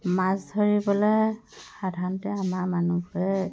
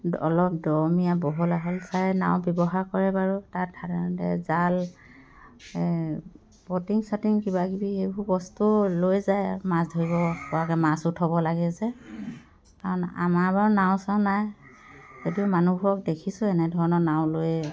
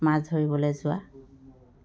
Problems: none marked